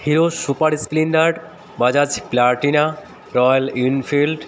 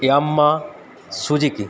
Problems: none marked